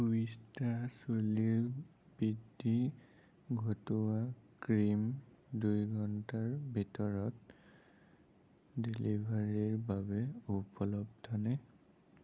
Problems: low volume